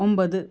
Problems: none marked